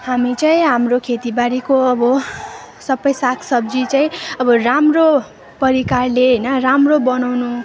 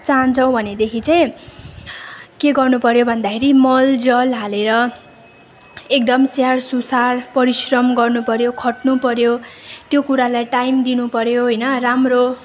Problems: none marked